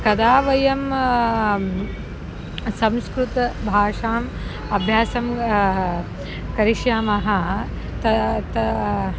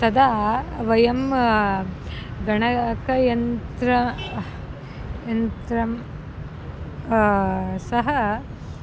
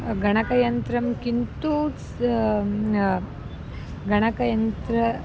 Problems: background sounds at intervals